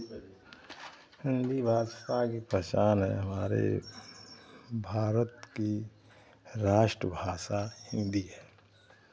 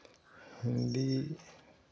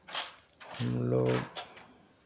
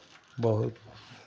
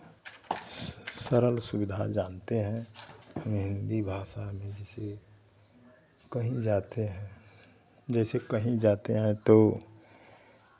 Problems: constant background noise